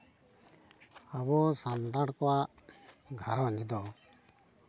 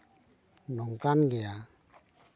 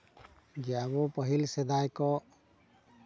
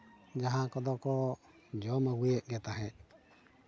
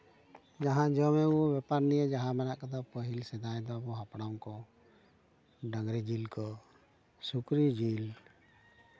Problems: background sounds at intervals